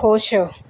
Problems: background sounds at intervals